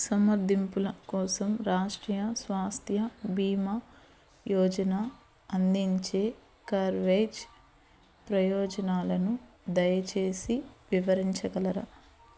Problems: none marked